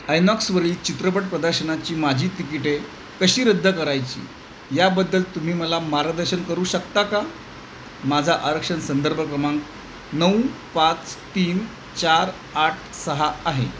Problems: constant background noise